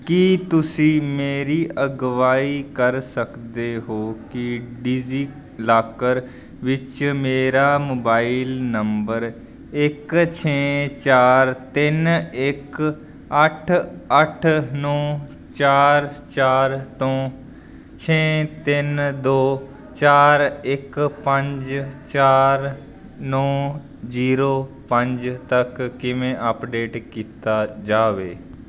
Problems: constant background noise